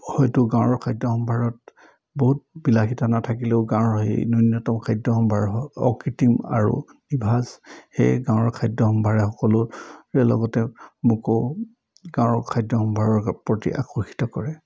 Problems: none marked